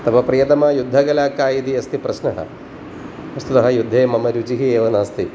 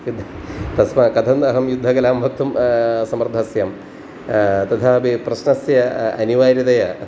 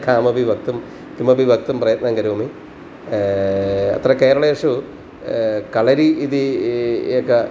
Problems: constant background noise